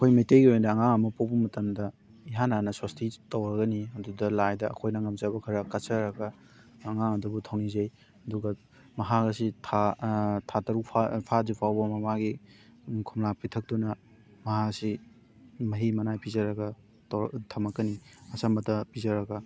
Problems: background sounds at intervals, continuous background conversations